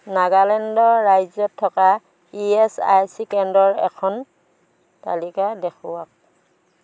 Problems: constant background noise